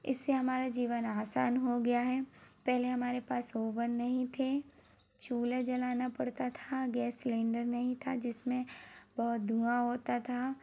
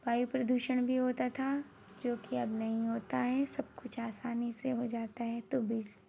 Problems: none marked